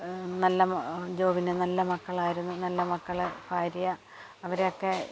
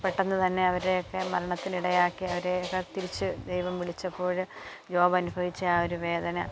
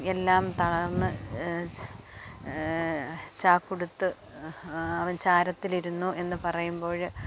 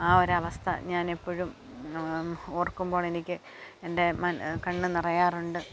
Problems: background sounds at intervals